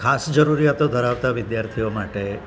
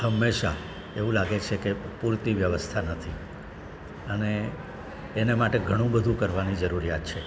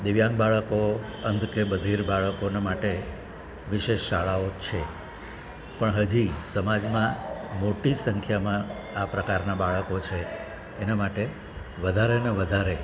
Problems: constant background noise